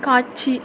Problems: constant background noise